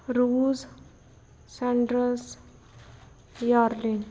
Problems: background sounds at intervals